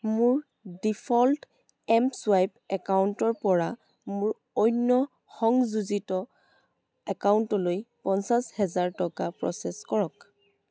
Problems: constant background noise